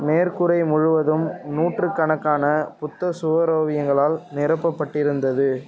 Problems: background sounds at intervals